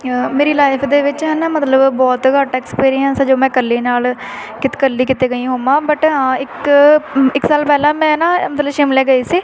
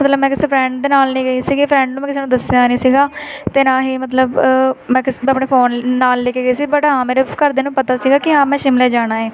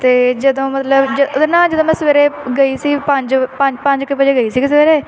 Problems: constant background noise, continuous background conversations